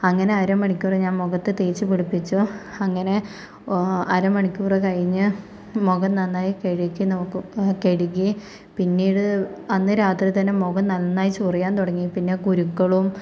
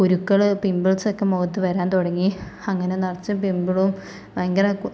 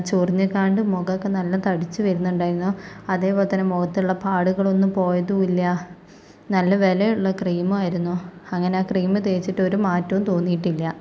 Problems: none marked